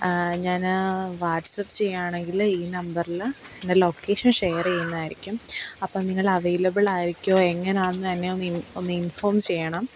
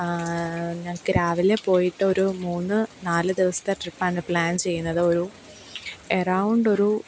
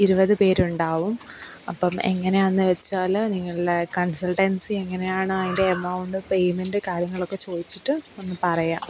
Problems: background sounds at intervals